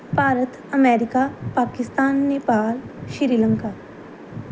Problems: none marked